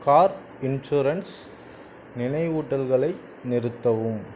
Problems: constant background noise